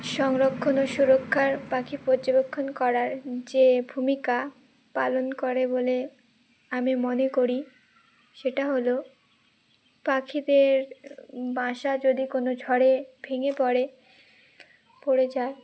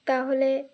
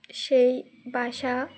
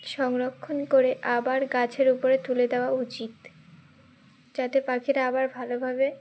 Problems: background sounds at intervals